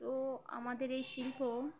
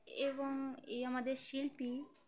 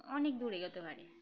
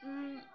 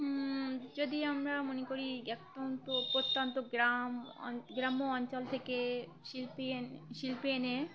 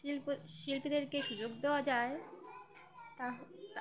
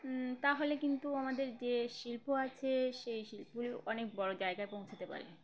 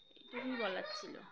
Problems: background sounds at intervals, background conversations at intervals